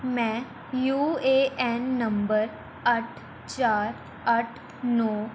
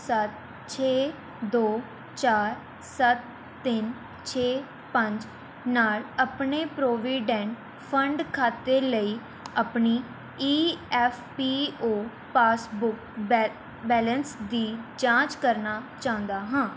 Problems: none marked